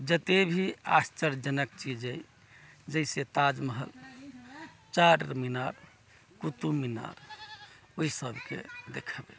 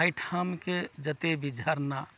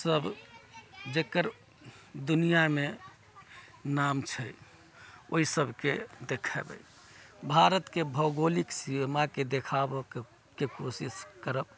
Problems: background sounds at intervals, background conversations at intervals